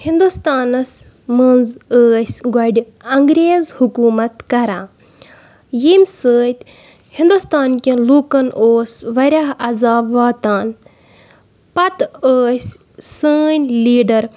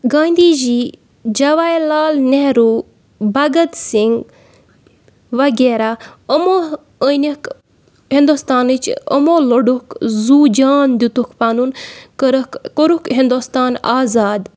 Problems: background sounds at intervals